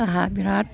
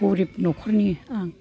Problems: continuous background conversations